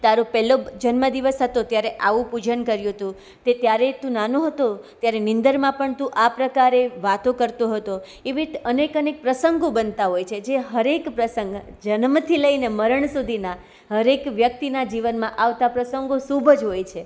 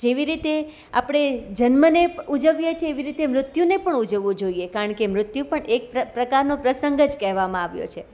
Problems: none marked